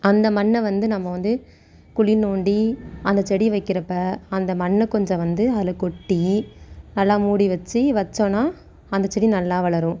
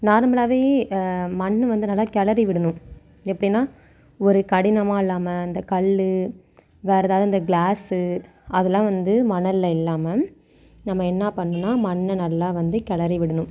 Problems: none marked